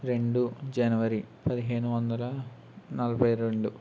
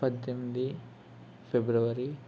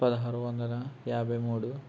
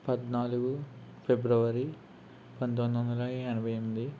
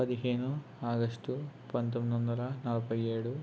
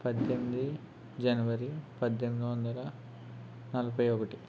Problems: constant background noise